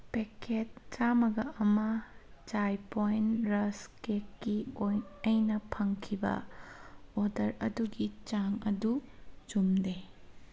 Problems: none marked